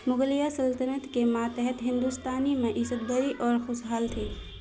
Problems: constant background noise